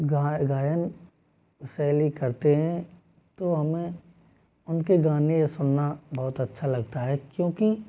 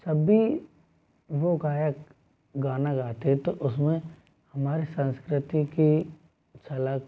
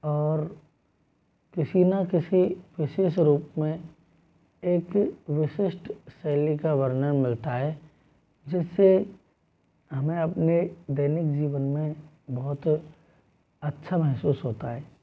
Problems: none marked